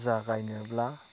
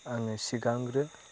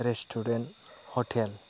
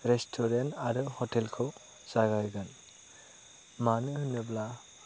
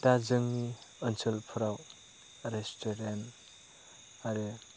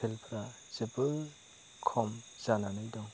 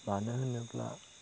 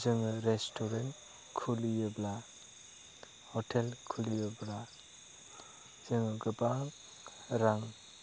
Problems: constant background noise